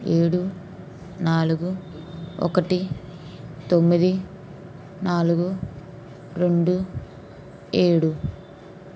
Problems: constant background noise